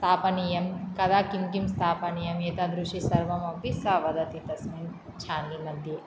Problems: none marked